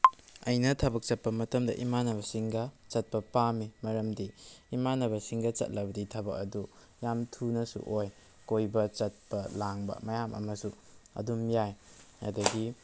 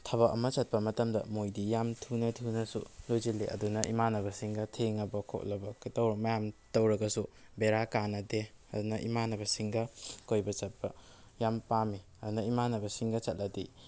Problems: none marked